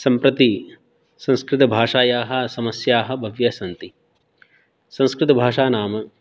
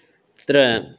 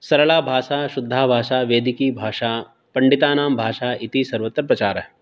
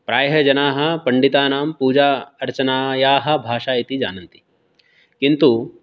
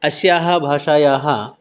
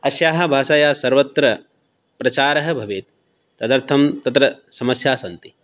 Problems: none marked